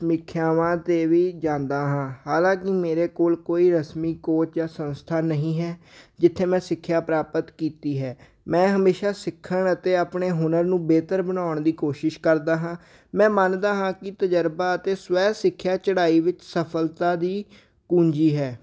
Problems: none marked